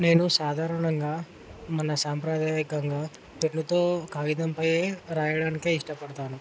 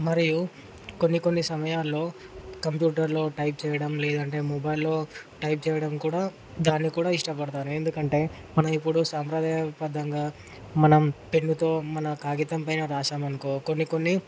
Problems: constant background noise